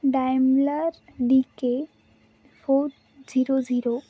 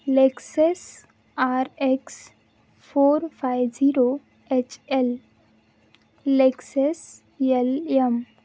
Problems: constant background noise